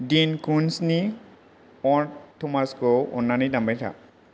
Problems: low volume